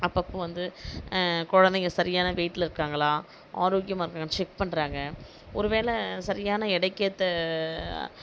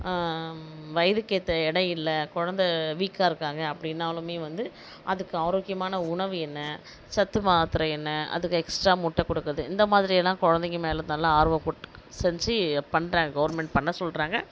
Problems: none marked